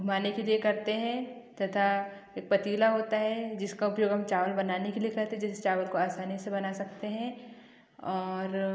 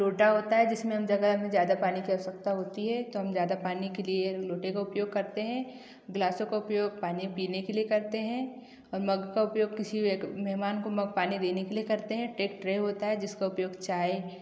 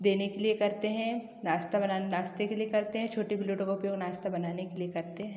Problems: none marked